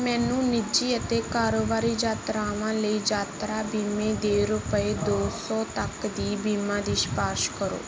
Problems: none marked